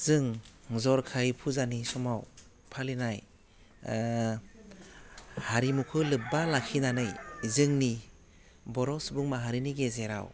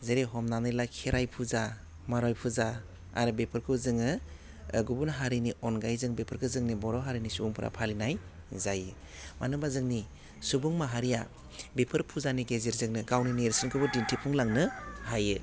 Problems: low volume